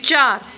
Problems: background sounds at intervals